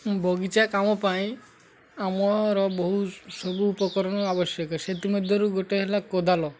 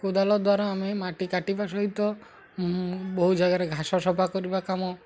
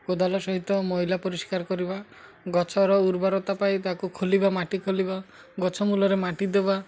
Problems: constant background noise, continuous background conversations